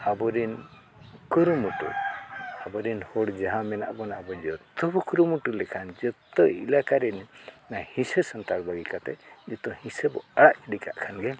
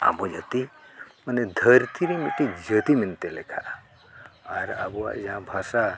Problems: background sounds at intervals